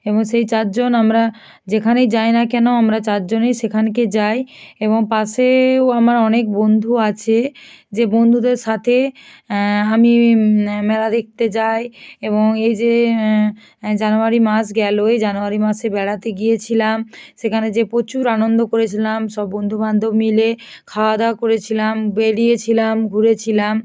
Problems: none marked